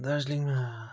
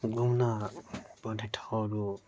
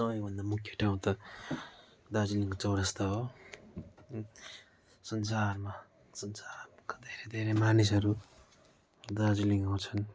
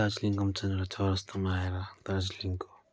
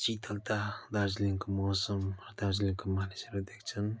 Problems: background sounds at intervals